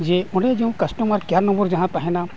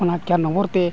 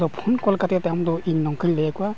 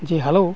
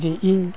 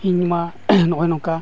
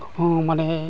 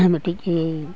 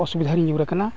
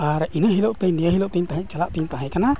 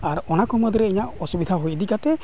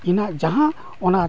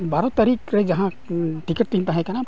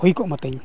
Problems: background sounds at intervals